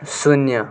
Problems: constant background noise